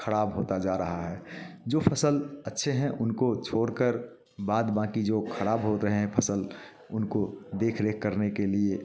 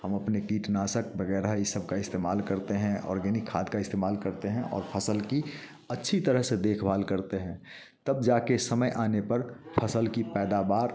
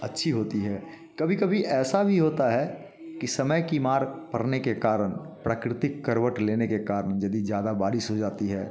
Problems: background sounds at intervals, background conversations at intervals